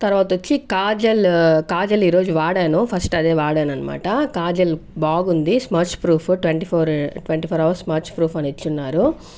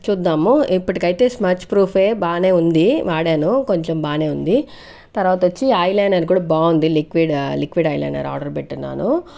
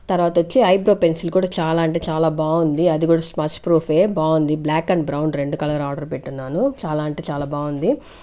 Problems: none marked